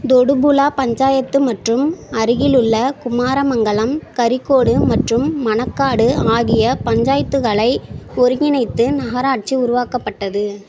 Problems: constant background noise